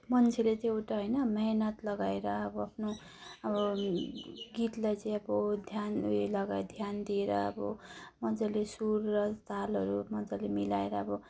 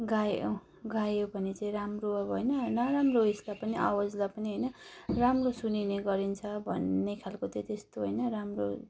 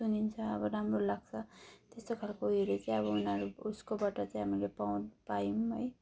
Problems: none marked